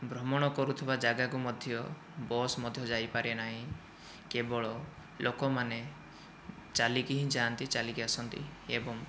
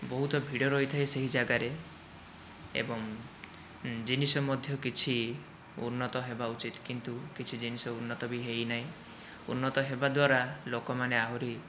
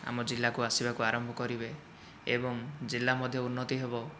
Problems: none marked